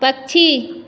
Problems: none marked